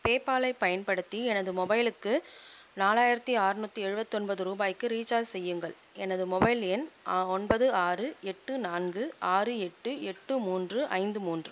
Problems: constant background noise